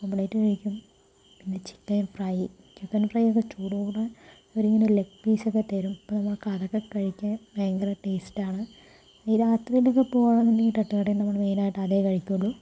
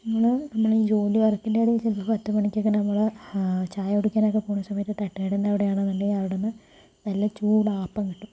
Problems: low volume